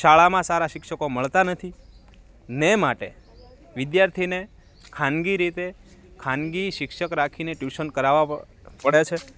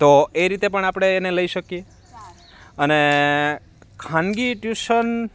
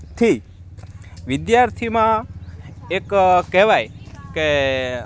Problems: none marked